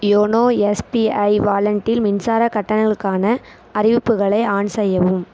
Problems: constant background noise